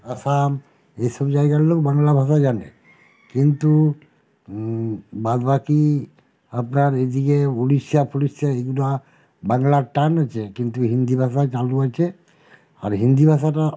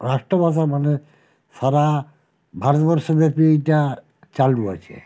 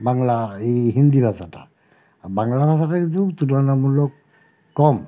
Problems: none marked